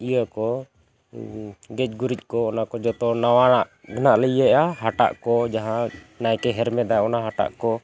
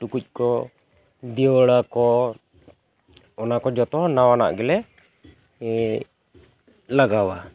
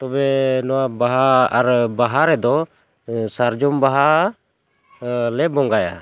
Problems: constant background noise